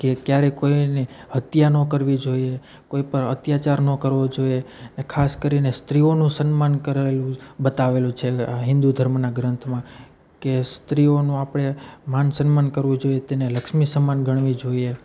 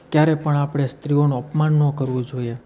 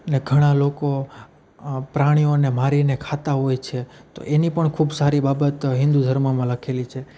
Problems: none marked